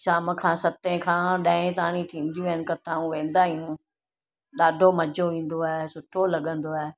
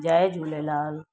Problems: none marked